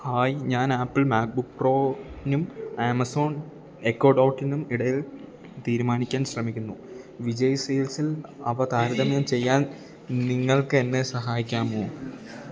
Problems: background conversations at intervals